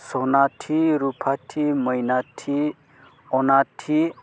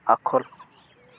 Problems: none marked